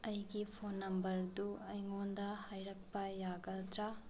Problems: constant background noise, low volume